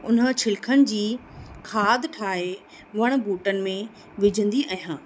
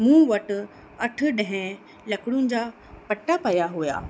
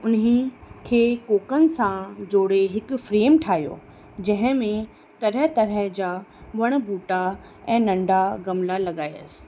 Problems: constant background noise